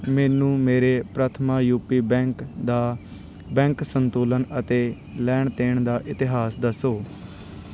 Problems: background sounds at intervals